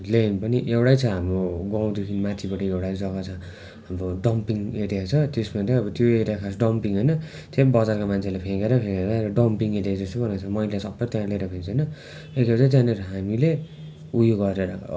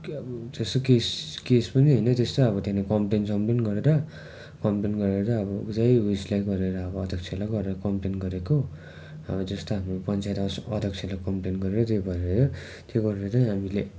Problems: constant background noise